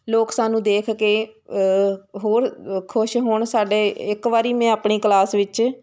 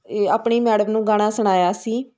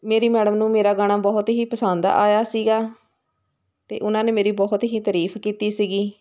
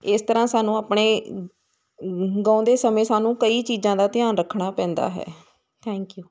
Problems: constant background noise